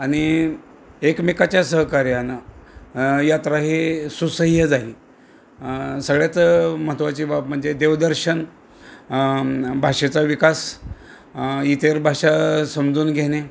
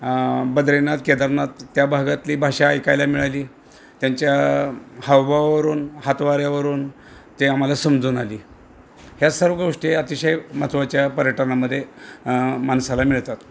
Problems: none marked